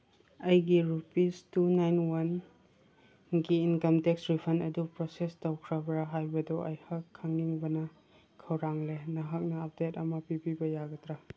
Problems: none marked